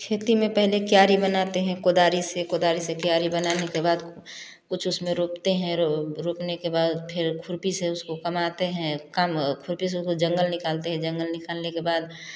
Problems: background sounds at intervals, continuous background conversations